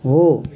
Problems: continuous background conversations